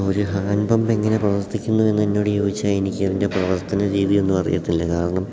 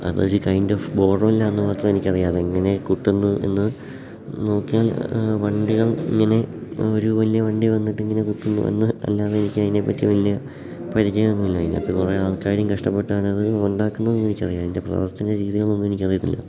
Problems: background sounds at intervals